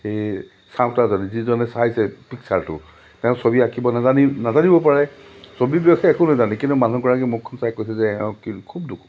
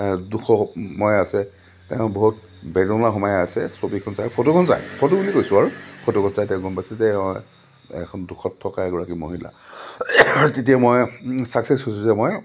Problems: low volume